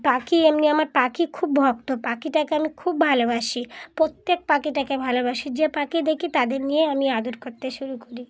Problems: none marked